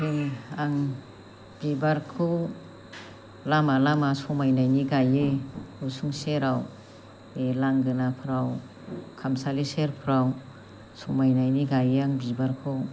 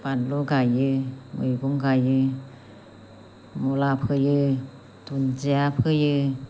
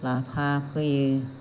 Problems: constant background noise